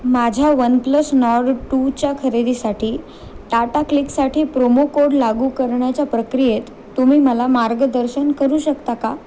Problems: constant background noise, background conversations at intervals